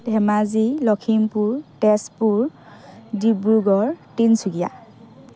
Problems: none marked